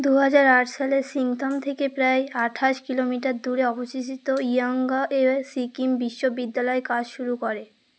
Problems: none marked